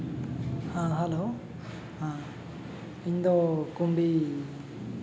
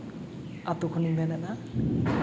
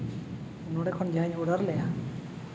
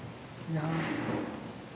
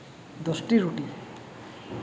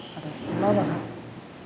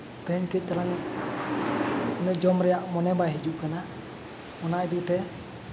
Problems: constant background noise, background conversations at intervals